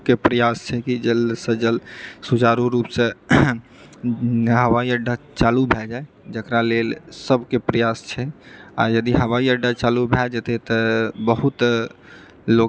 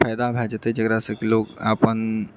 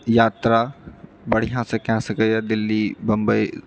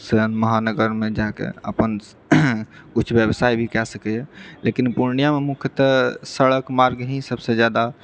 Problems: none marked